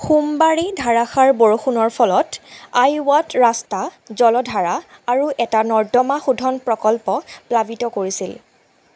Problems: none marked